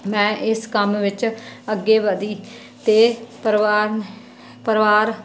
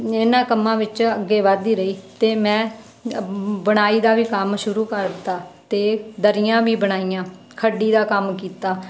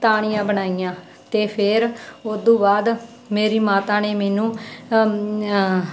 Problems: none marked